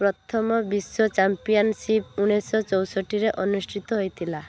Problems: low volume